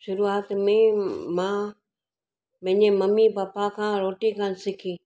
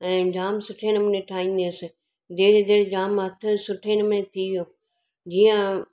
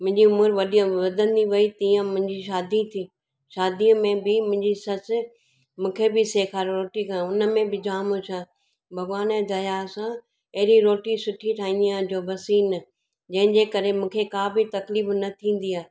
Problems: none marked